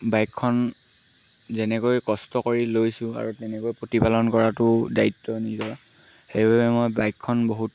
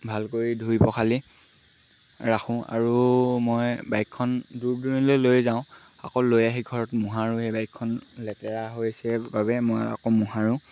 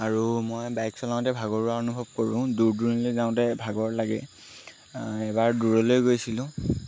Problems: constant background noise